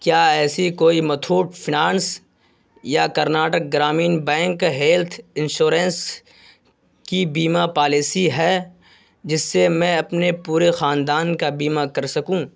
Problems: constant background noise